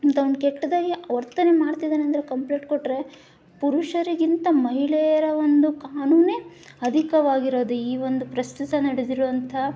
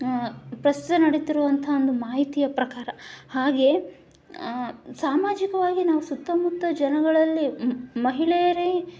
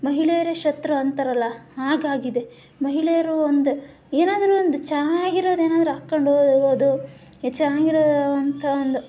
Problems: background sounds at intervals